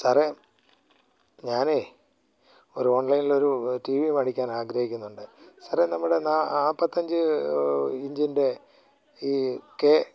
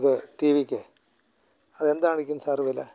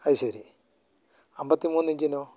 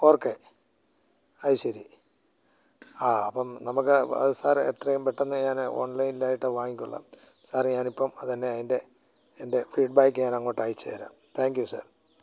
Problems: none marked